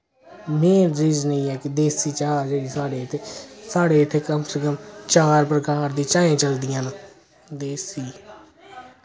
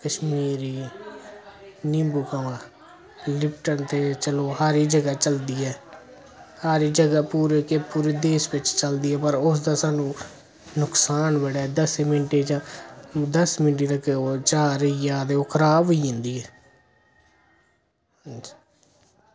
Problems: none marked